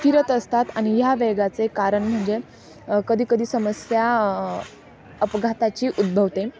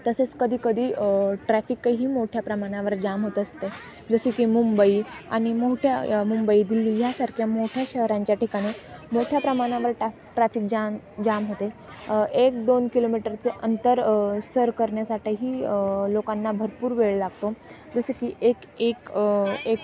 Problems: none marked